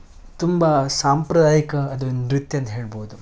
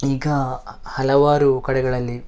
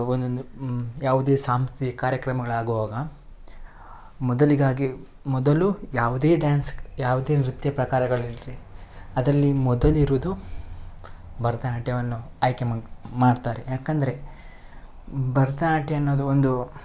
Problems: none marked